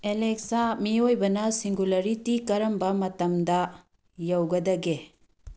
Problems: none marked